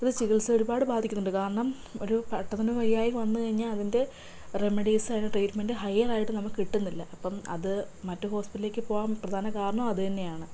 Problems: low volume